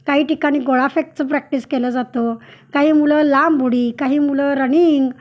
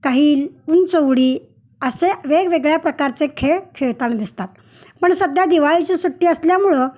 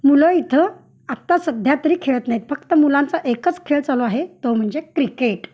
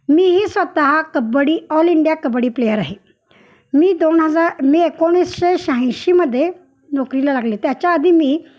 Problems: constant background noise